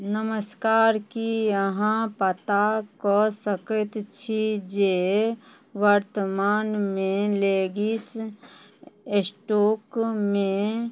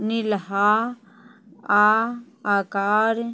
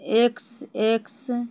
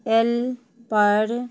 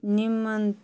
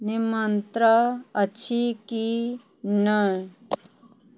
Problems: background conversations at intervals